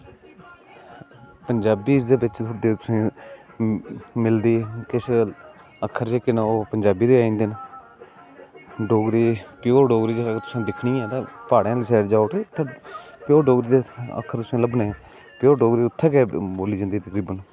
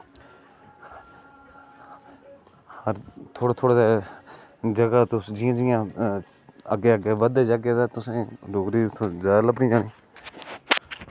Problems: constant background noise